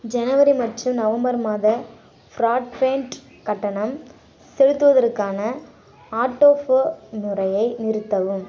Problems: constant background noise